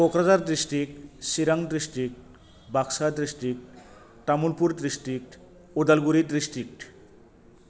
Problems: constant background noise